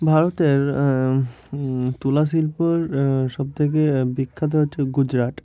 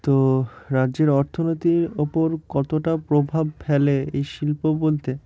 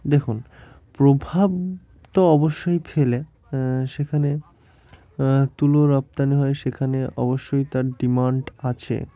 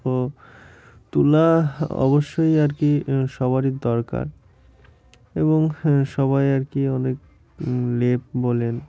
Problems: constant background noise